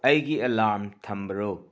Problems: constant background noise